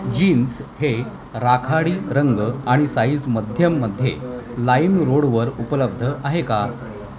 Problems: constant background noise, continuous background conversations